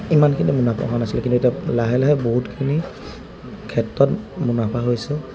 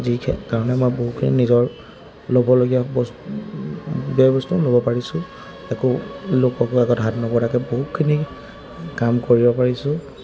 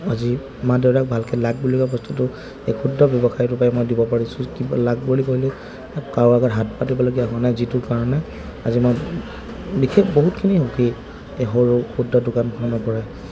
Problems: constant background noise, background conversations at intervals